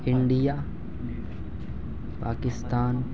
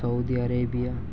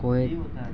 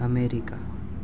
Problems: constant background noise, background conversations at intervals